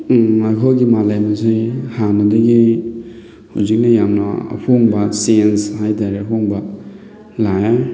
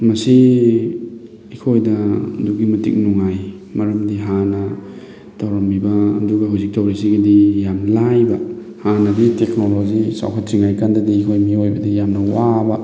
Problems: constant background noise